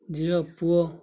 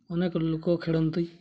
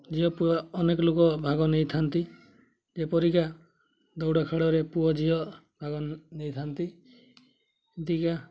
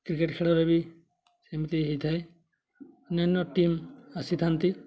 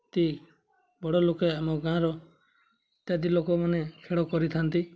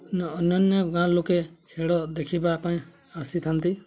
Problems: constant background noise, continuous background conversations